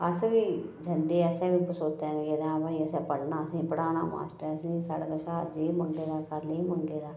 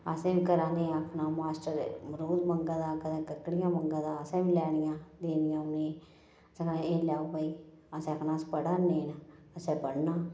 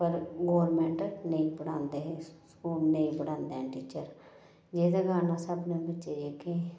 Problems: low volume